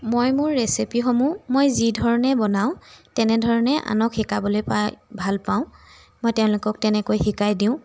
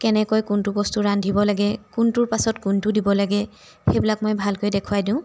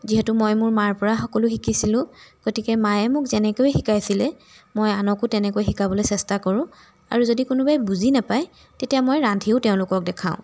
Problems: background sounds at intervals